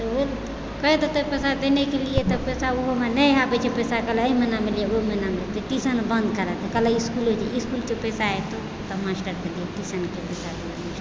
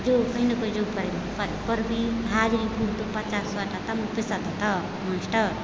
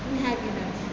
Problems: constant background noise